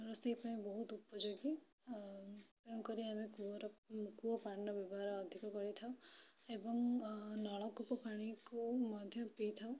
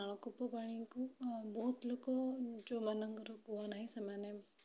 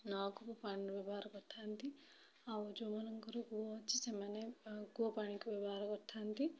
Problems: low volume